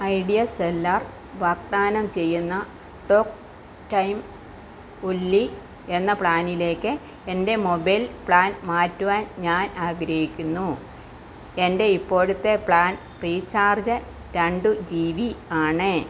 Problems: constant background noise